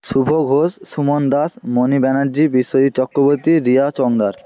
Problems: none marked